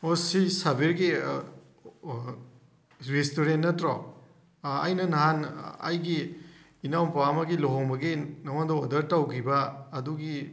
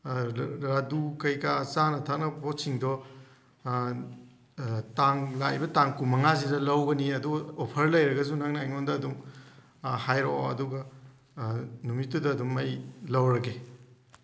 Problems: background sounds at intervals